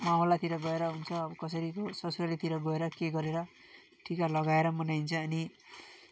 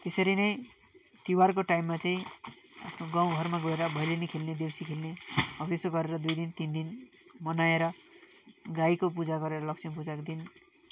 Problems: none marked